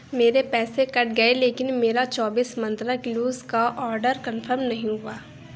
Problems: constant background noise